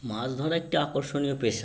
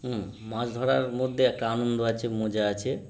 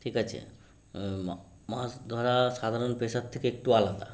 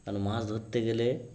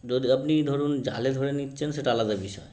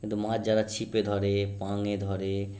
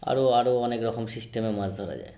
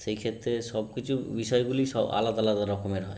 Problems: constant background noise